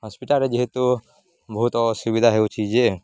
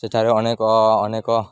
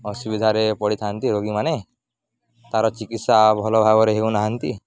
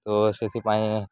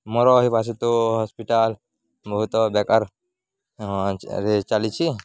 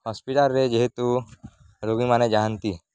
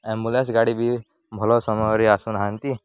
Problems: none marked